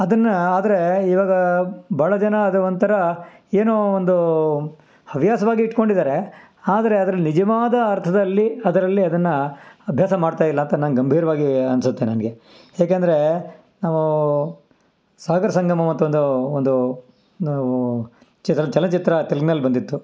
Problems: background sounds at intervals